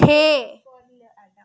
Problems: background sounds at intervals